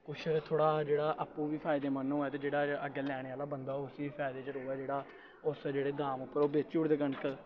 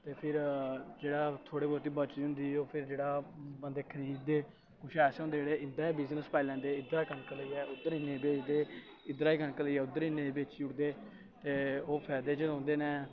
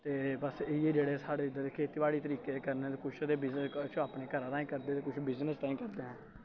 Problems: constant background noise